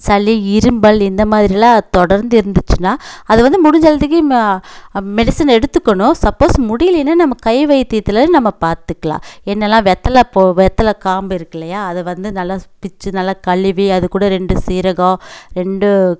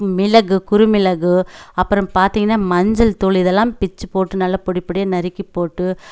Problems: none marked